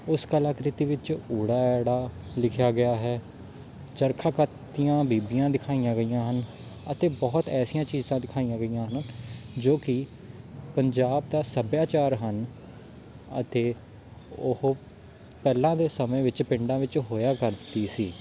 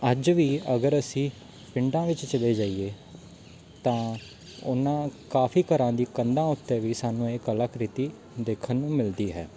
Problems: constant background noise, background conversations at intervals